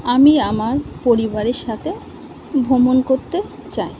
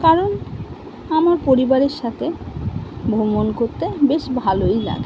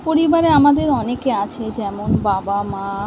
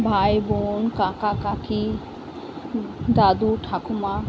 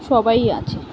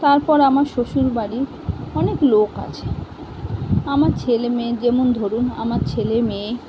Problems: constant background noise